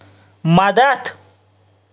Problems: none marked